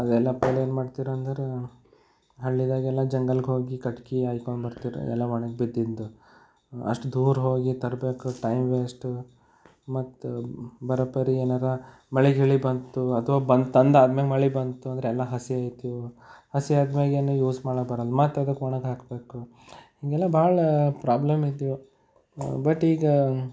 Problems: none marked